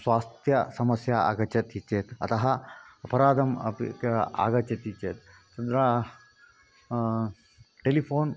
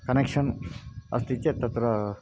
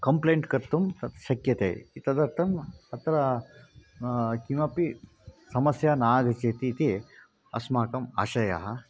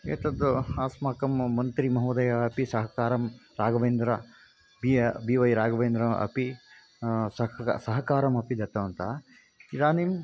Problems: constant background noise